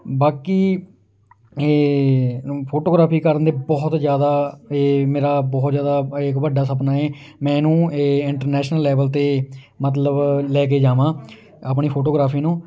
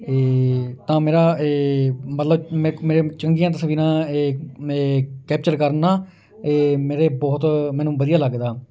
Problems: none marked